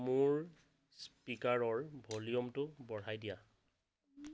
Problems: background sounds at intervals